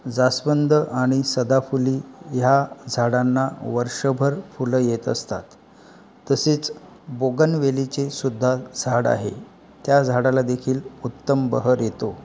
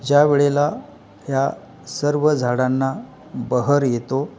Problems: background sounds at intervals, background conversations at intervals